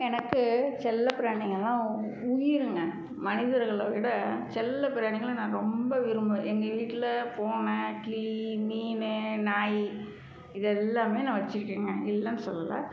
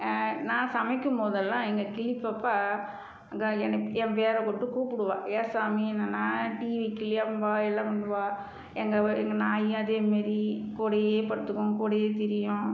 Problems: background conversations at intervals